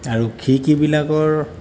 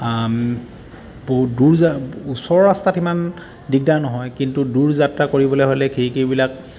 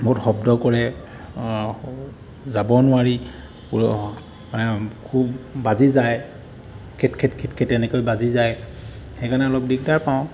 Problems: constant background noise